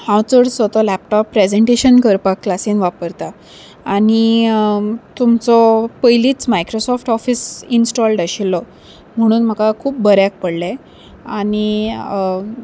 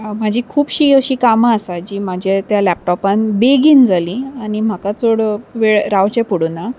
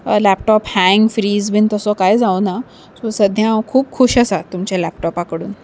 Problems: none marked